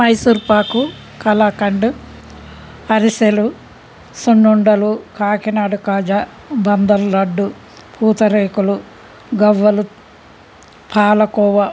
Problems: constant background noise